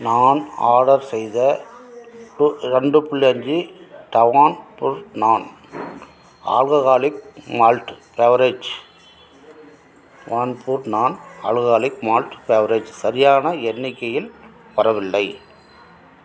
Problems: none marked